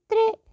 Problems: none marked